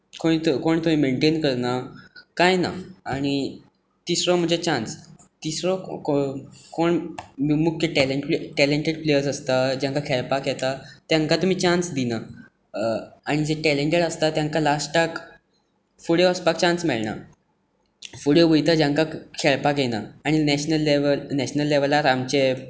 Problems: none marked